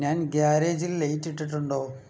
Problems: low volume